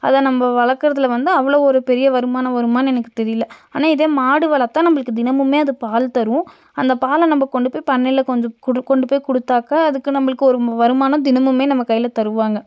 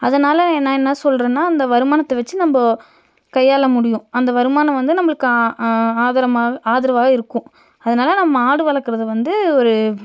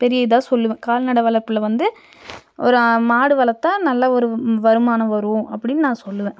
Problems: none marked